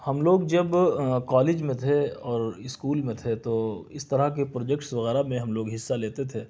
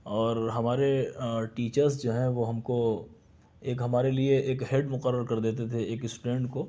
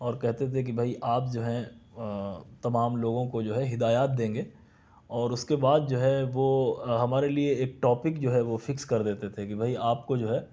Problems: none marked